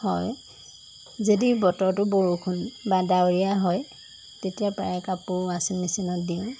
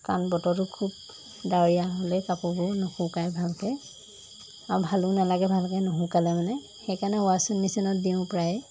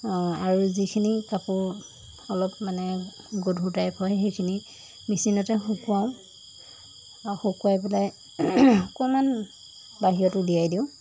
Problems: constant background noise